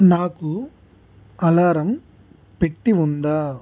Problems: constant background noise